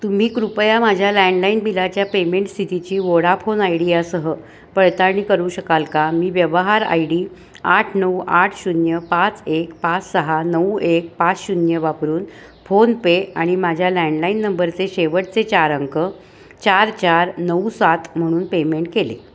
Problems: constant background noise